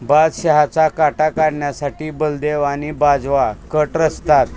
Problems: constant background noise, background conversations at intervals